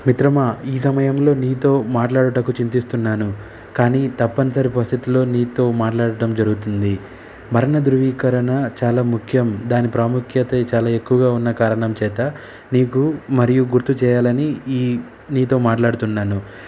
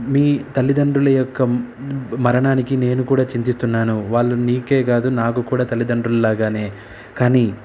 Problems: none marked